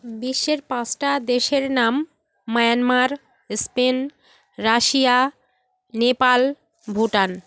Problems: none marked